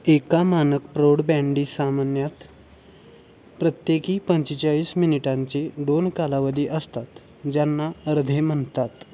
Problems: constant background noise